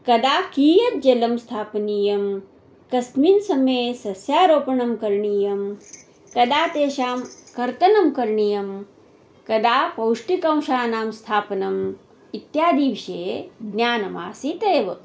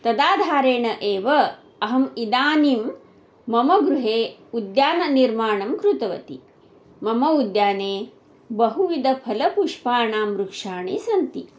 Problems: background sounds at intervals